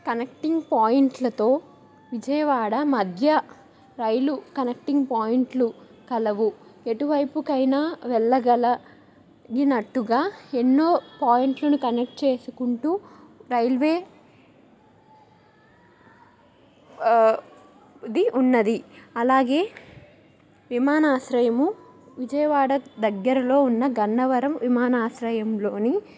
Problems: background conversations at intervals